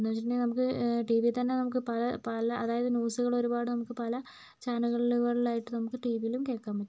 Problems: none marked